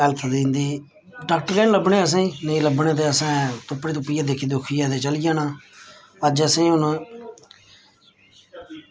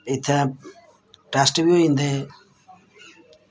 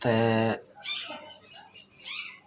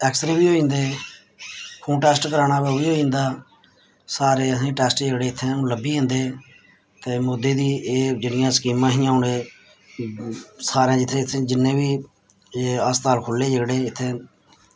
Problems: constant background noise